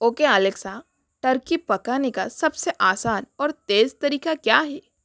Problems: constant background noise